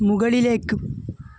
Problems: constant background noise